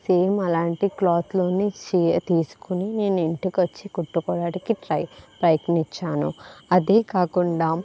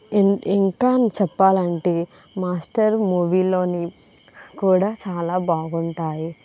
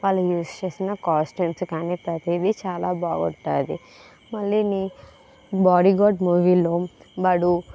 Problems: constant background noise